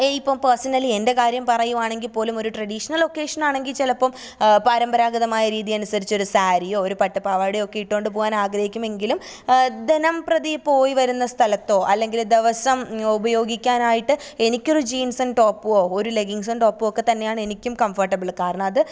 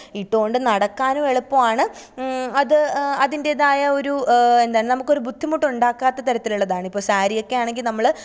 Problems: none marked